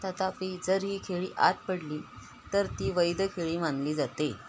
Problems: constant background noise